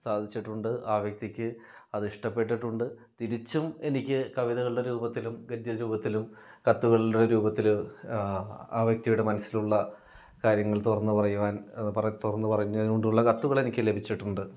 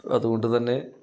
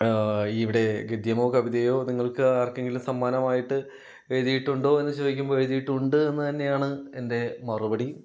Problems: none marked